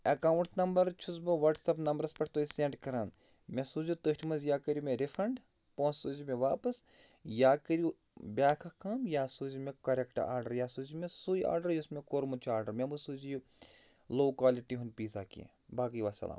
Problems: none marked